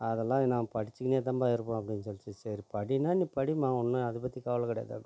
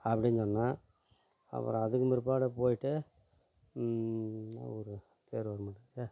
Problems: low volume